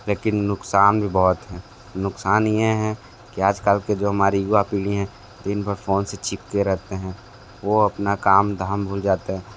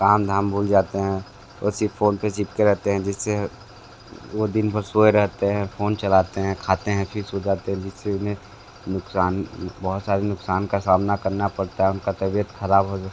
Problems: constant background noise